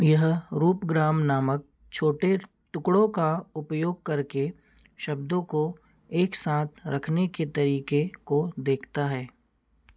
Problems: constant background noise